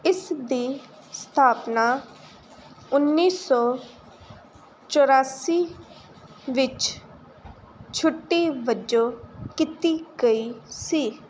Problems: none marked